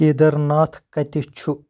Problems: none marked